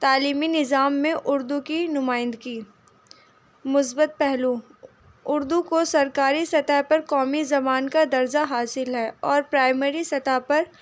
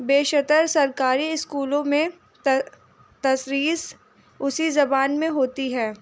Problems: constant background noise